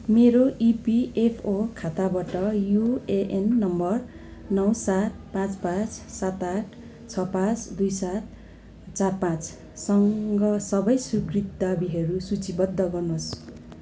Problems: constant background noise